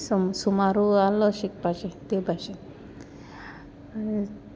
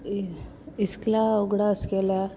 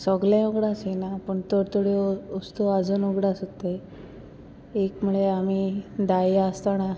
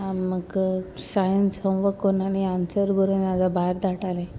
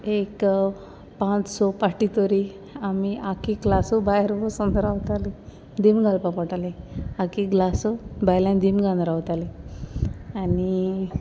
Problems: none marked